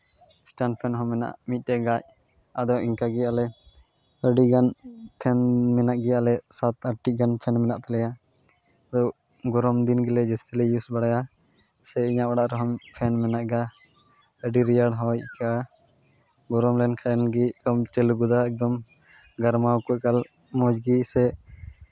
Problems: constant background noise